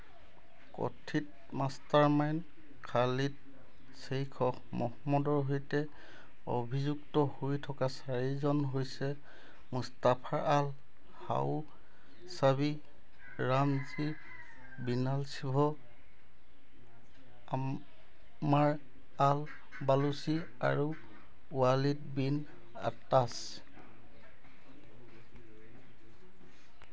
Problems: constant background noise